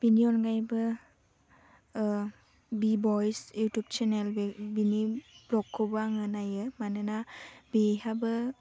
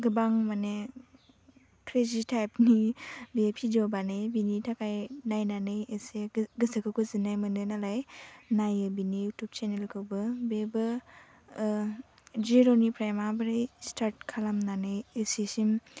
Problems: low volume